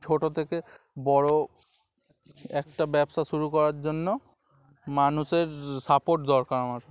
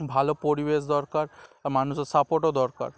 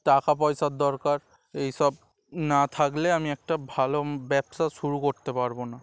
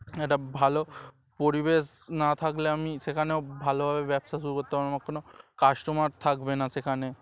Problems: none marked